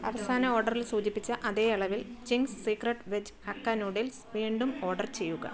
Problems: background sounds at intervals, background conversations at intervals, low volume